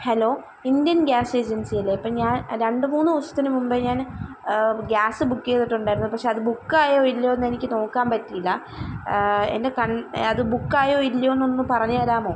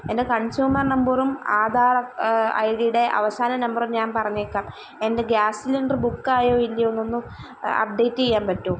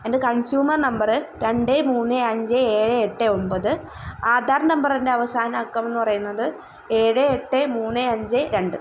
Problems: background sounds at intervals